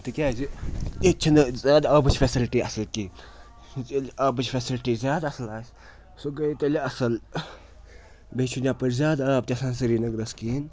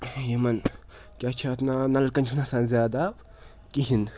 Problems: constant background noise